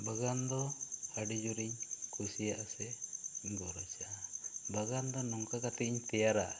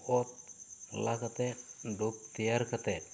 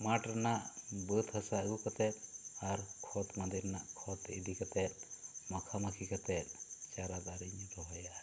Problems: none marked